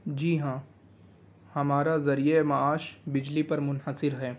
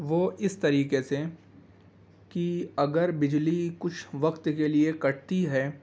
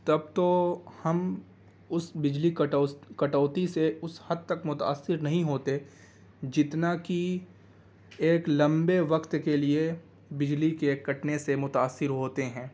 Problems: background sounds at intervals